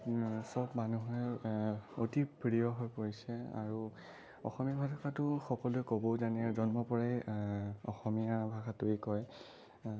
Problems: low volume